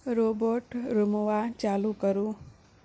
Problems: low volume